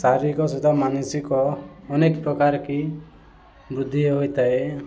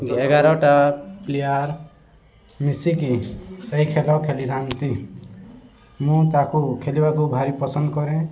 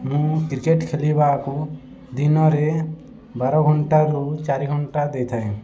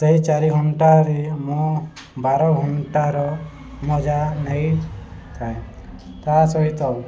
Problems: constant background noise, continuous background conversations